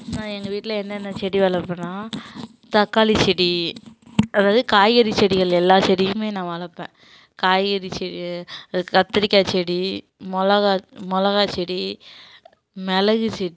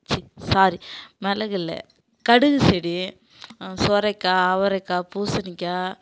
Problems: constant background noise